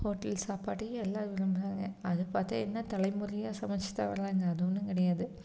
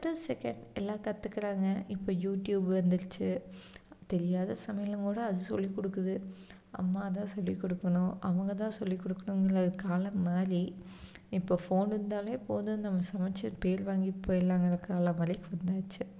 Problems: none marked